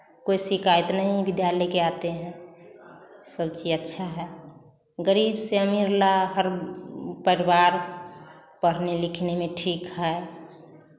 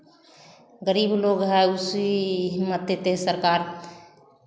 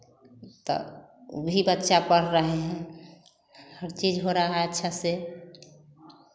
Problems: none marked